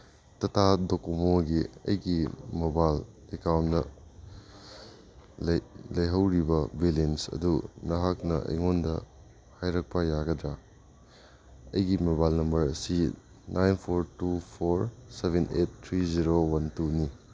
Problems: none marked